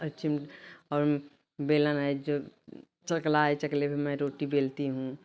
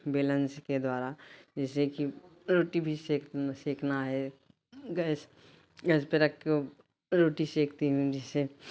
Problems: constant background noise